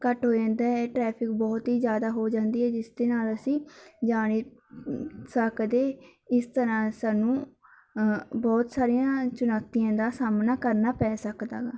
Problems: background sounds at intervals